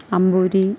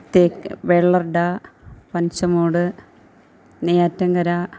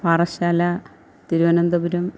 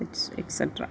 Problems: background conversations at intervals